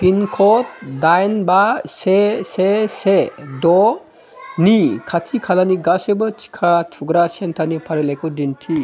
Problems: continuous background conversations